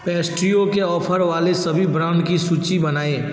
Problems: none marked